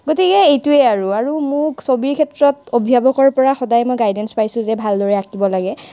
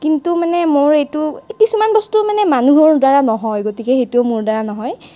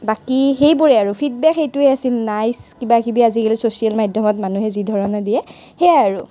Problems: none marked